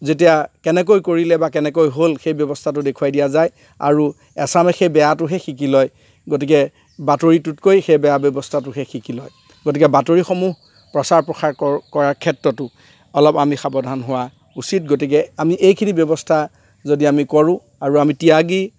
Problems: none marked